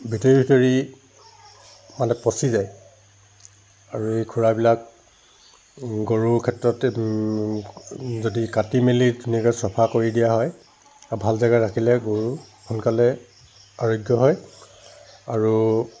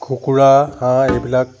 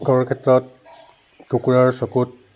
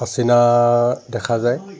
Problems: none marked